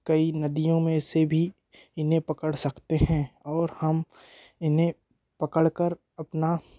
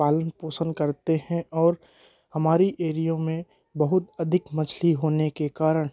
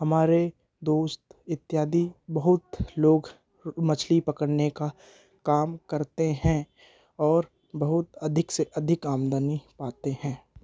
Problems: background conversations at intervals